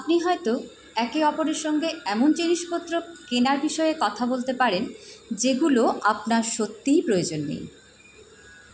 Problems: constant background noise